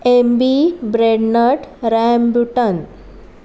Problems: background sounds at intervals